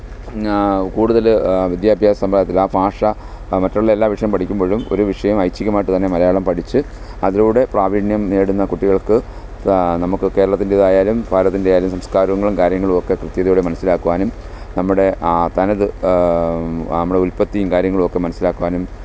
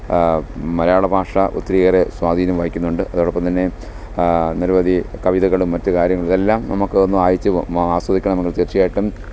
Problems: background sounds at intervals